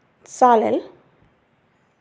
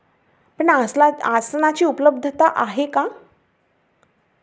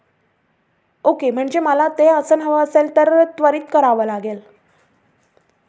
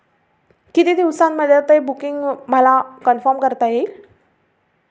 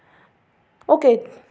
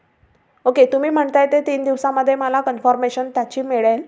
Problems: none marked